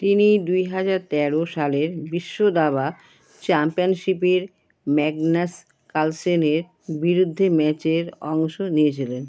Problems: none marked